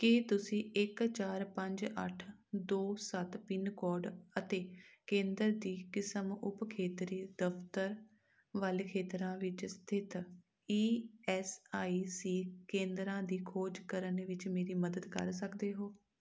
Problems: none marked